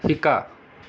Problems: none marked